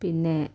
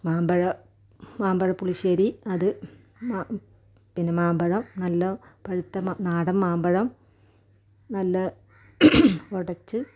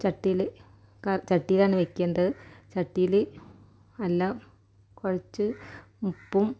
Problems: low volume